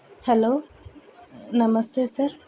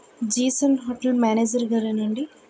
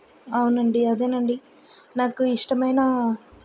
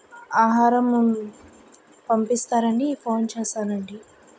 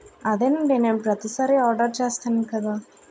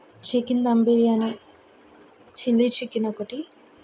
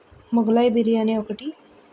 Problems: background sounds at intervals